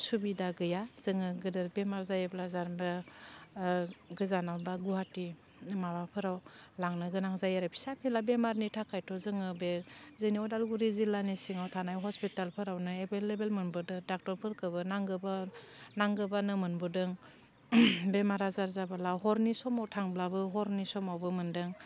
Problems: constant background noise